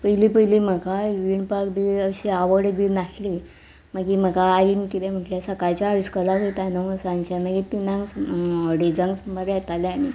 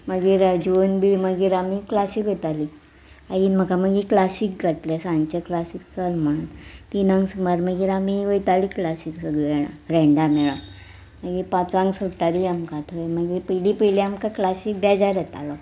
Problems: background sounds at intervals